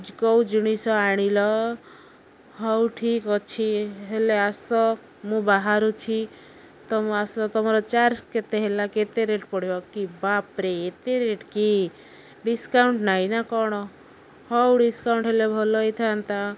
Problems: none marked